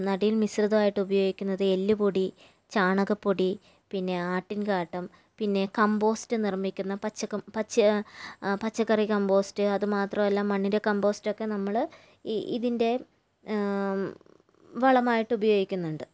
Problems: none marked